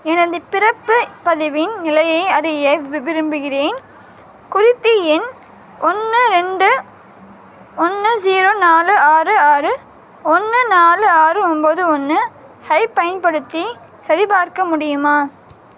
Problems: constant background noise